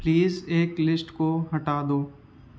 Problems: constant background noise